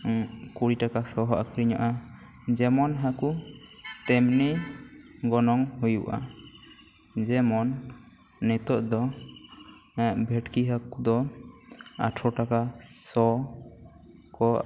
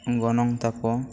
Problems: none marked